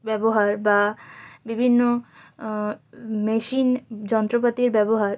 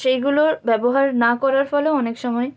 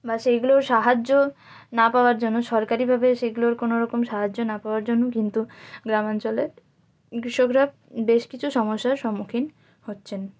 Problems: none marked